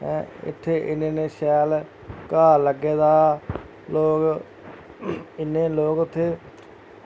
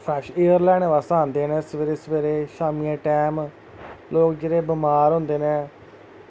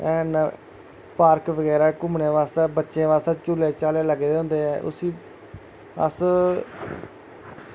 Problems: constant background noise